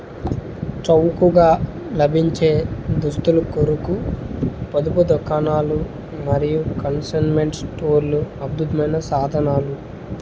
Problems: constant background noise